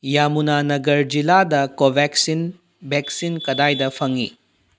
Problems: none marked